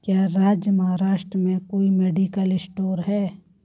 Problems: background sounds at intervals